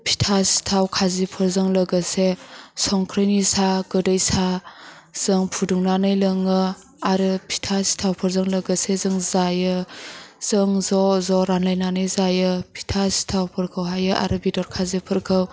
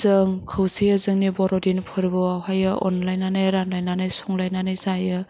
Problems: low volume